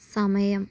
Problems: low volume